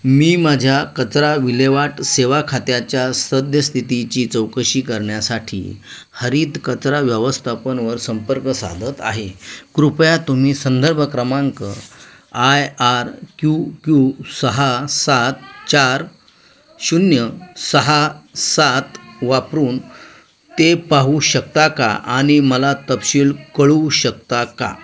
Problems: constant background noise, continuous background conversations